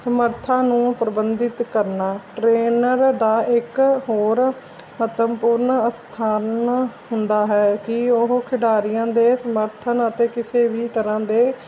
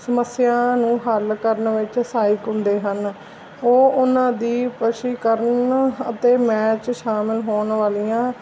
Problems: constant background noise